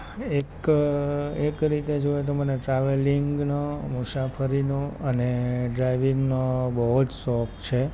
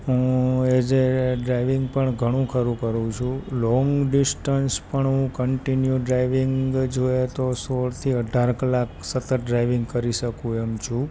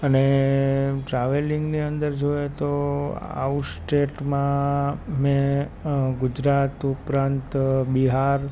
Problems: background sounds at intervals